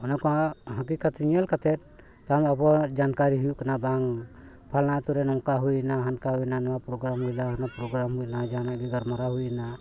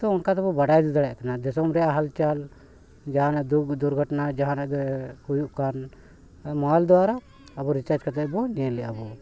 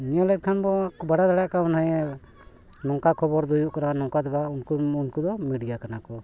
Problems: none marked